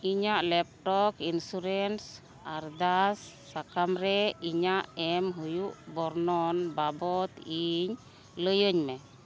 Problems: none marked